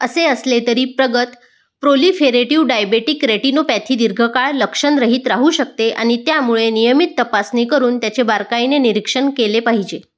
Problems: background sounds at intervals